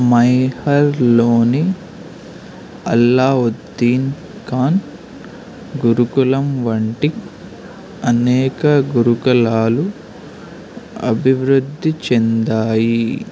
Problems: constant background noise